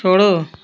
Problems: none marked